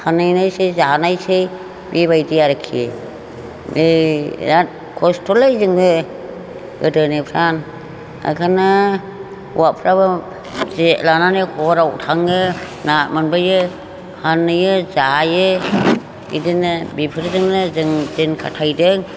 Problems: constant background noise